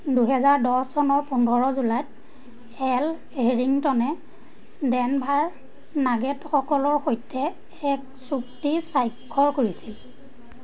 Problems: constant background noise